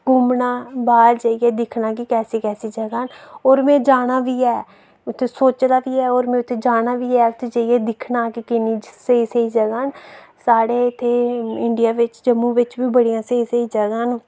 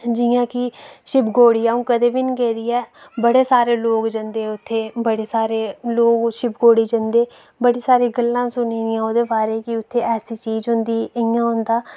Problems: none marked